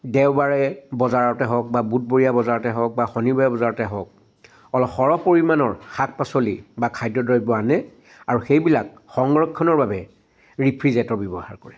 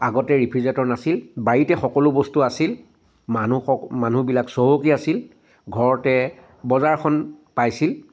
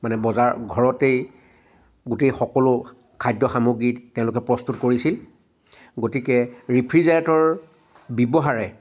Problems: constant background noise